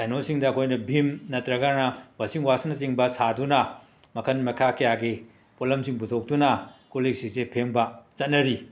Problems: background sounds at intervals